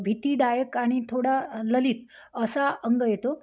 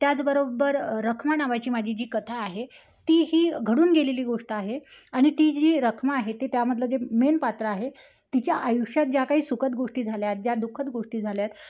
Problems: none marked